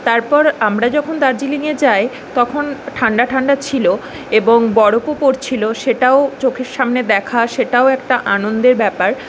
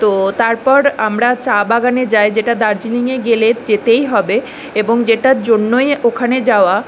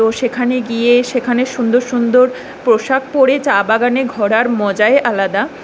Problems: background sounds at intervals